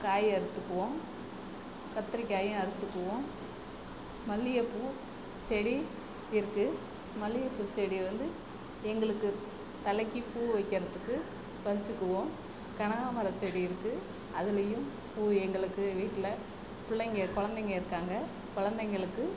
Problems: constant background noise, low volume